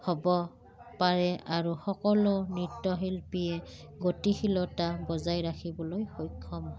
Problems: background sounds at intervals